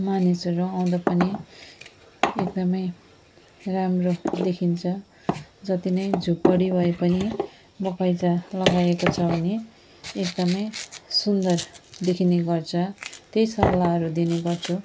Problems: background sounds at intervals